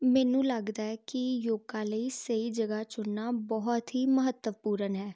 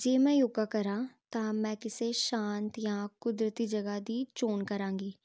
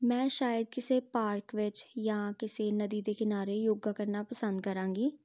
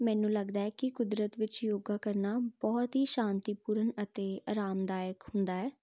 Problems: none marked